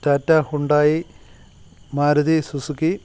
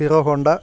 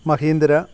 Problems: constant background noise